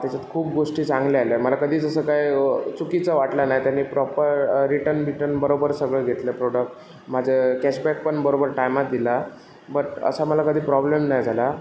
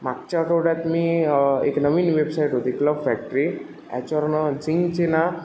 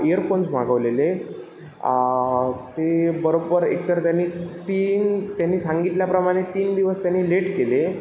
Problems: constant background noise, echo